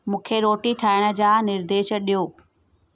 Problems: none marked